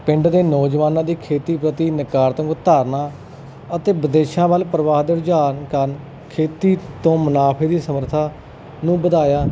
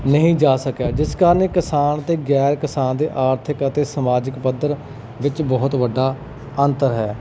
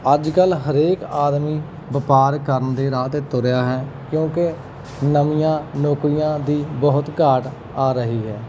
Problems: none marked